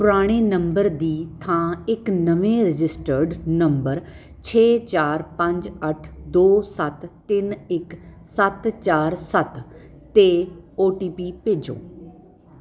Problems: none marked